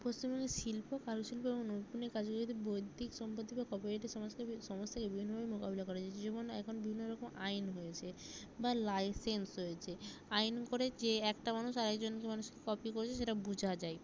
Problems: low volume